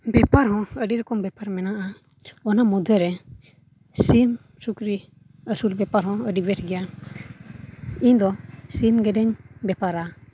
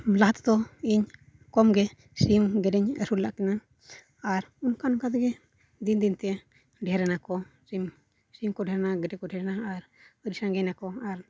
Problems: low volume